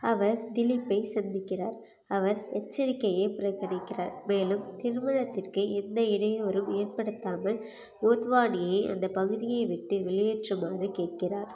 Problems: none marked